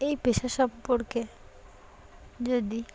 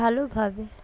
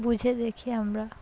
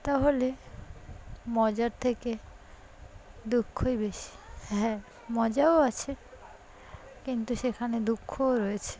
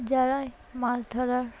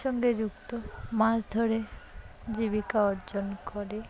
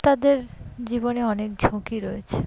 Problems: background conversations at intervals